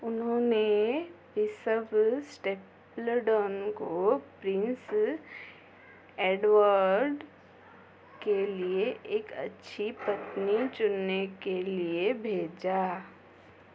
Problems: none marked